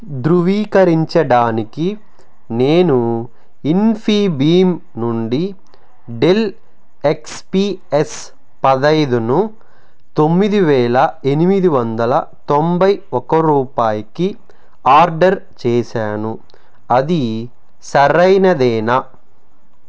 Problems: none marked